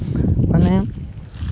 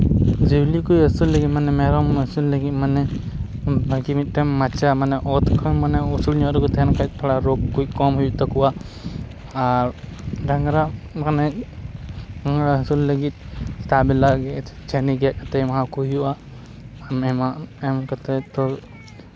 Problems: background sounds at intervals